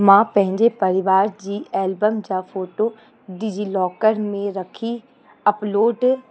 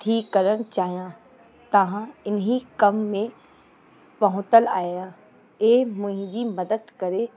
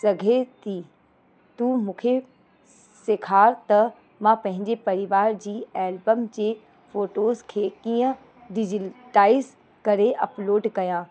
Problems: constant background noise